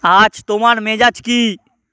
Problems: constant background noise